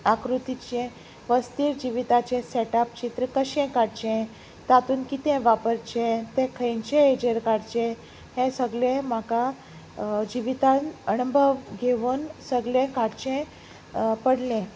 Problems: constant background noise